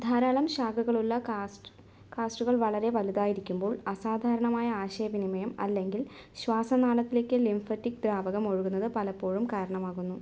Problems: none marked